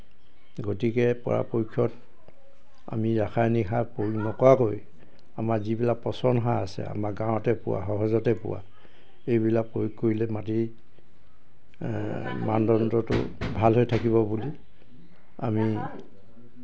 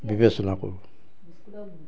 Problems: background sounds at intervals